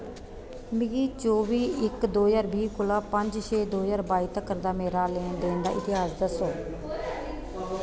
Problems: constant background noise